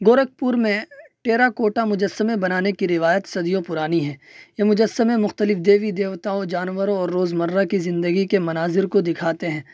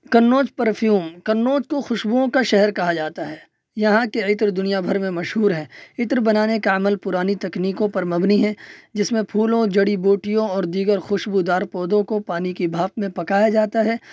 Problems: none marked